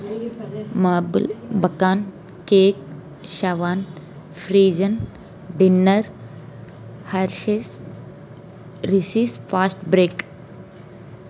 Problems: background conversations at intervals